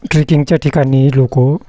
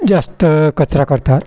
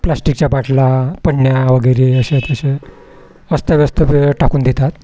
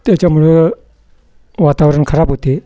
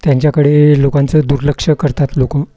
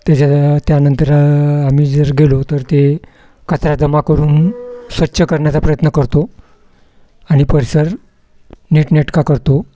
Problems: none marked